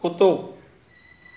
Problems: constant background noise